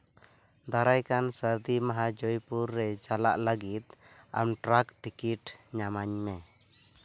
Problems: constant background noise